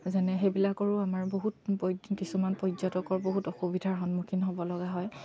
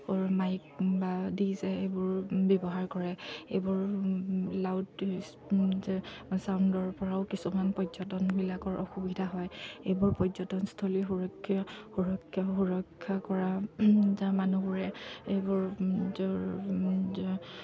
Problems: none marked